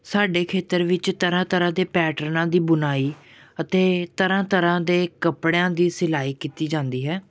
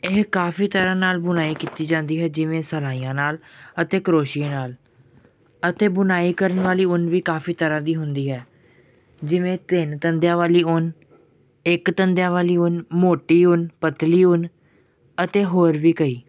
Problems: background sounds at intervals